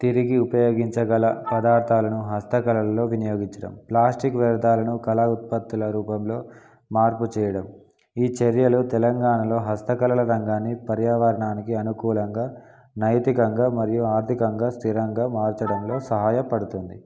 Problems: none marked